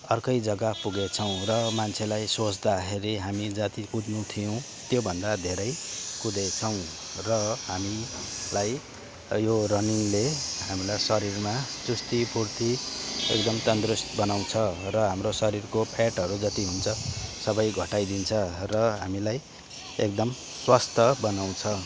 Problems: background conversations at intervals